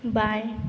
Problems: background sounds at intervals